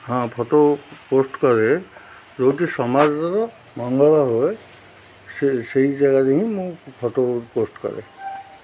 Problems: constant background noise